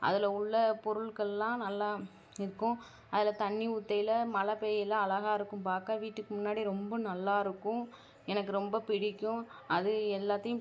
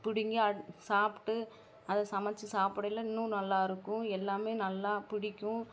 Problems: none marked